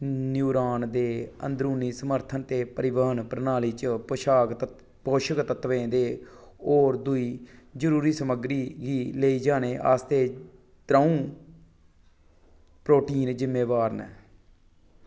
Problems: low volume